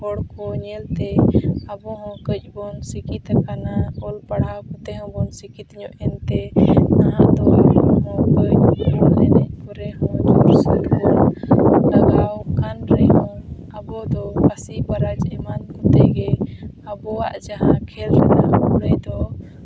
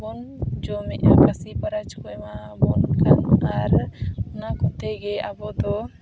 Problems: constant background noise